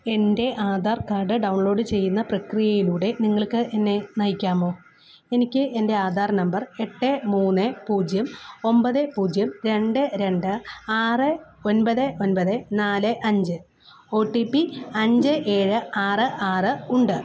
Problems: none marked